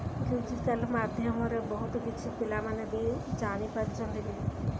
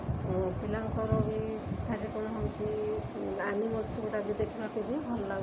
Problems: constant background noise, continuous background conversations